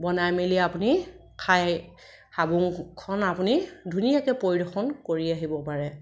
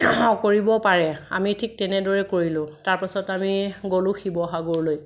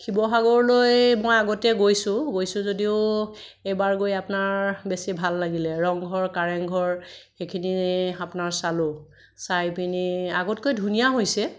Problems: none marked